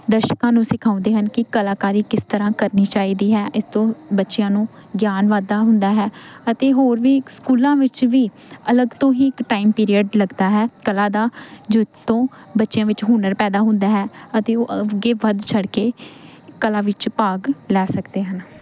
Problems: constant background noise